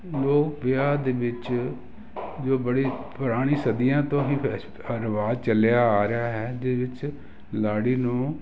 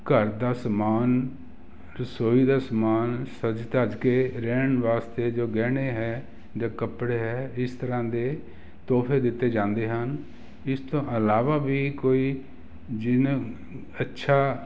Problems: constant background noise